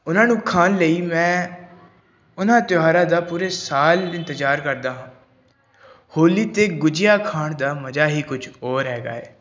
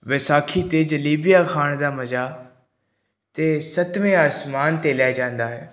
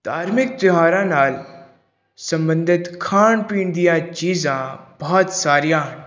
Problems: background sounds at intervals